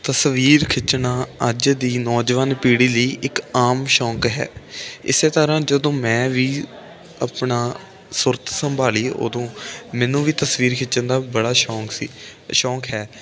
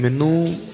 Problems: none marked